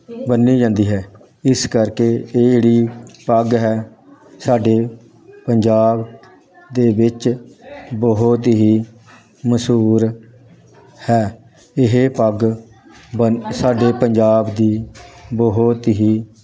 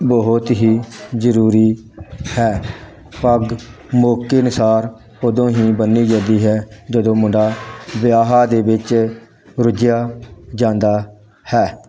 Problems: constant background noise